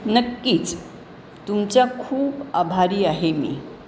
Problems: constant background noise